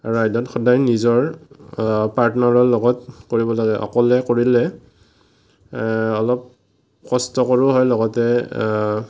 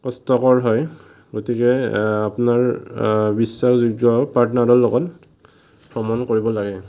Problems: none marked